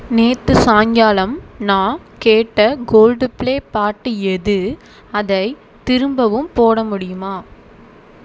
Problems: none marked